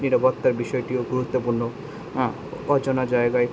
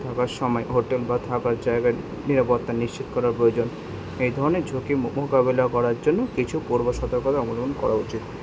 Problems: none marked